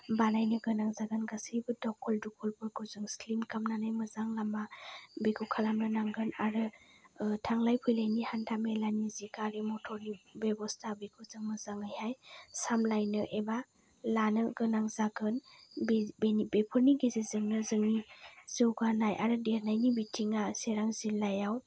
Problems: none marked